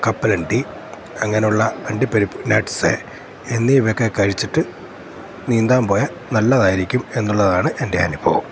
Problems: constant background noise